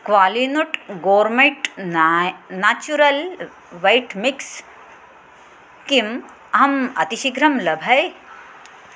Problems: constant background noise